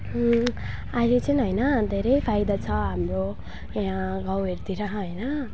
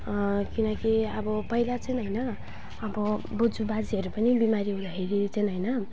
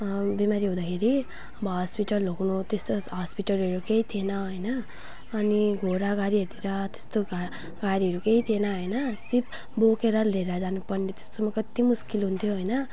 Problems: none marked